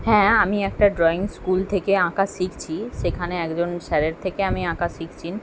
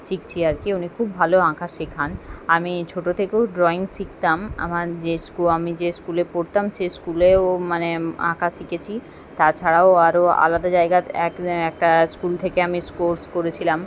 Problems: background sounds at intervals